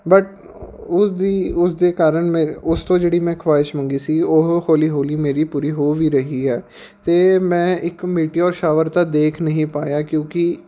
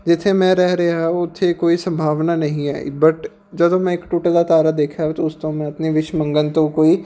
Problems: background sounds at intervals